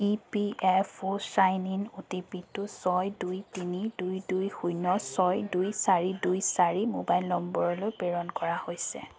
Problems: constant background noise, continuous background conversations